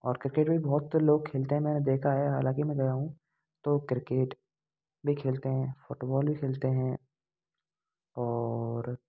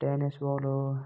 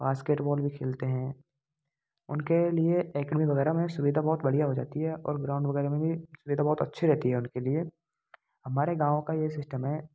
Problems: constant background noise